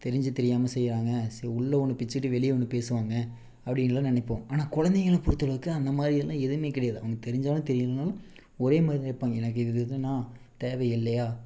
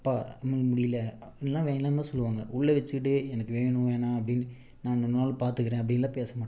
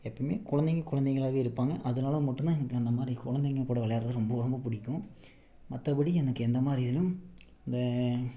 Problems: background sounds at intervals